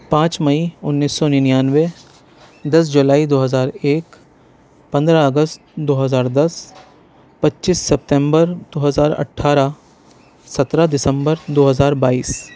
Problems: none marked